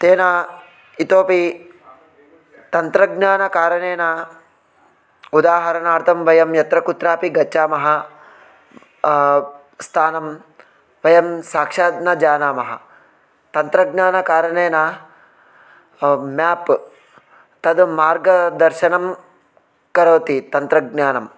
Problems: none marked